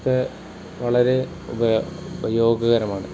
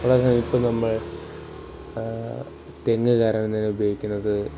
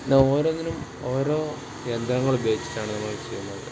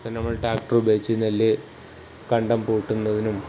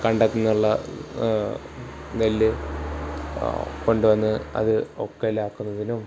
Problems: background sounds at intervals